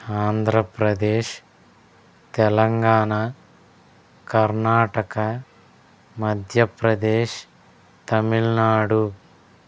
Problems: none marked